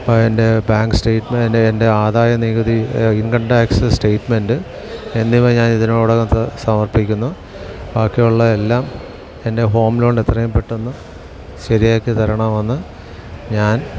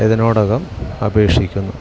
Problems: constant background noise